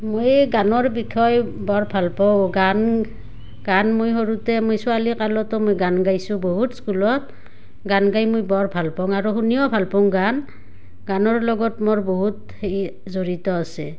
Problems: none marked